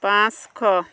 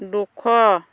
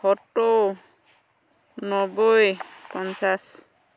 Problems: constant background noise